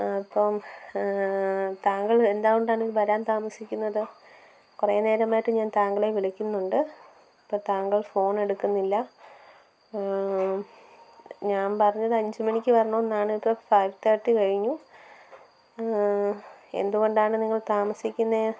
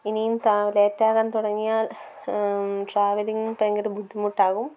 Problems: background sounds at intervals, low volume